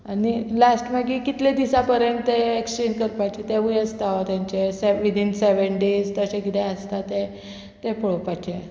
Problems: none marked